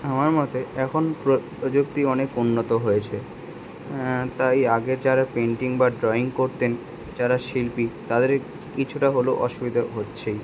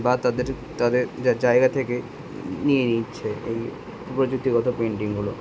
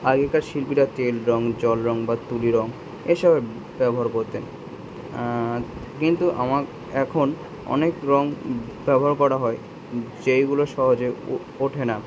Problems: background sounds at intervals